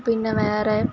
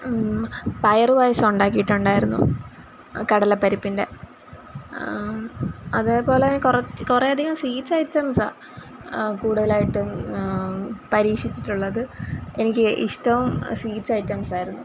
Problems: background sounds at intervals